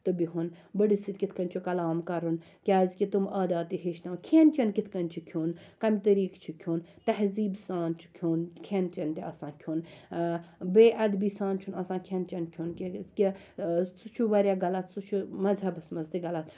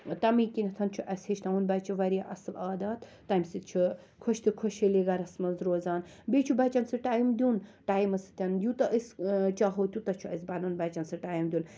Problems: background sounds at intervals